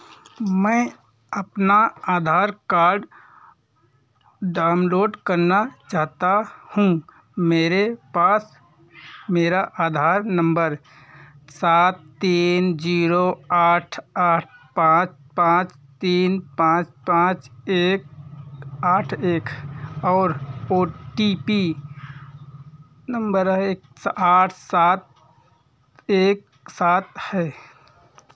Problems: background sounds at intervals